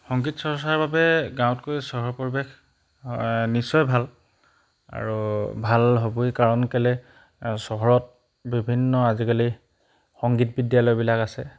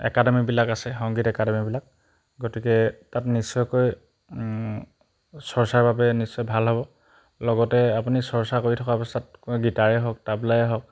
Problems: background sounds at intervals